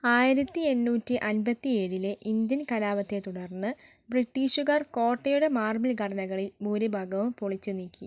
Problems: none marked